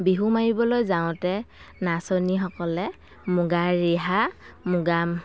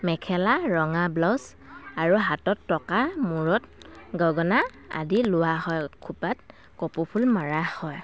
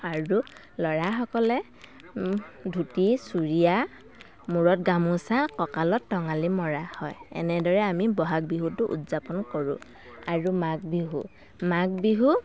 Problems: constant background noise, continuous background conversations